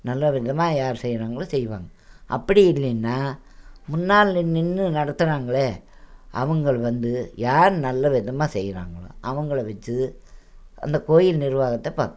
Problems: none marked